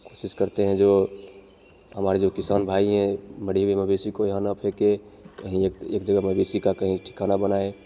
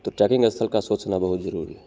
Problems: none marked